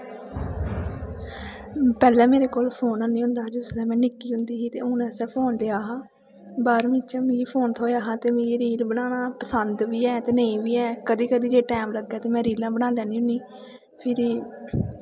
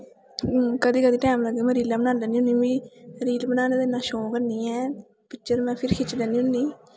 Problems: constant background noise, echo